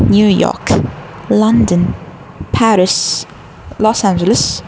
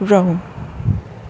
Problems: constant background noise